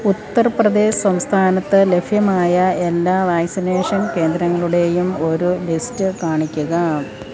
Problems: continuous background conversations